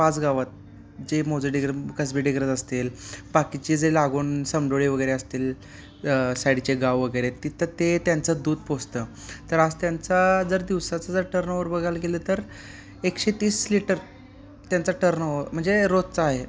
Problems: constant background noise